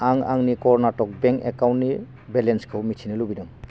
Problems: none marked